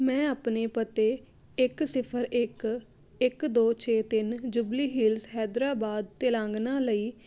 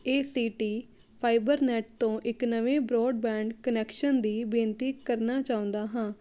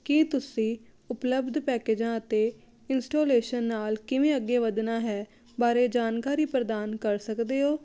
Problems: none marked